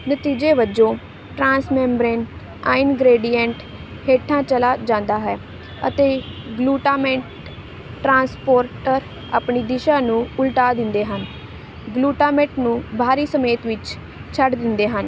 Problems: none marked